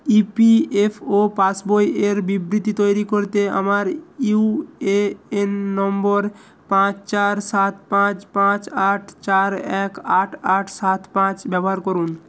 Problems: constant background noise